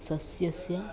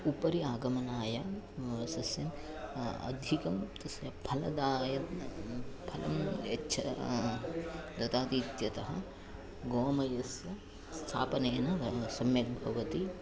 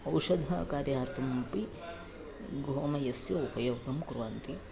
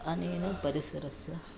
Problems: background conversations at intervals, low volume